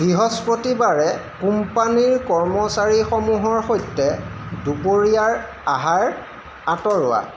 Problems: constant background noise